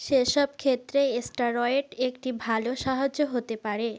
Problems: none marked